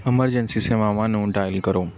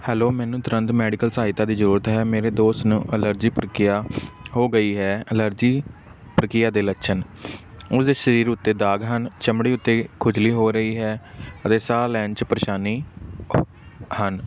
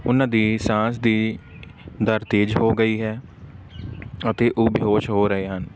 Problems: none marked